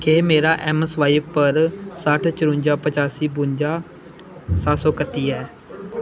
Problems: constant background noise